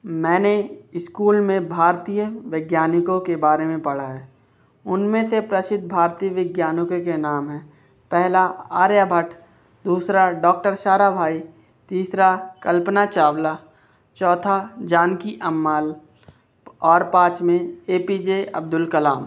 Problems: none marked